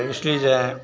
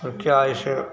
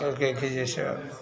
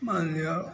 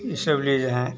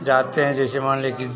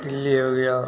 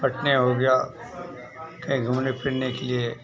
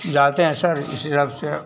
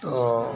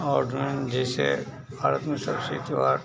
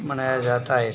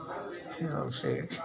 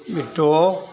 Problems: constant background noise